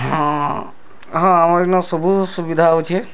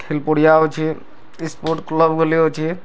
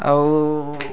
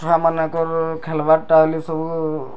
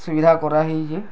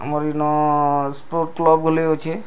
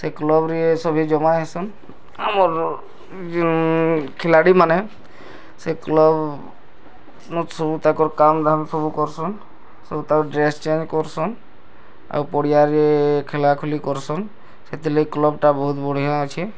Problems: background sounds at intervals